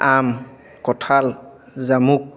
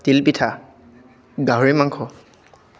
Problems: constant background noise, background conversations at intervals